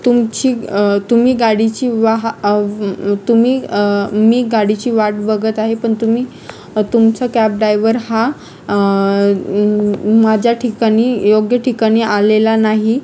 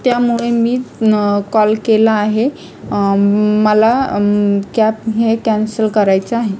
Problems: constant background noise, continuous background conversations